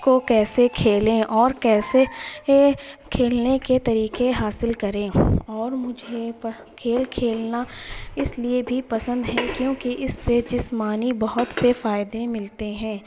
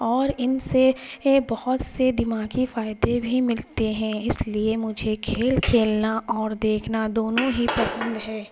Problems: constant background noise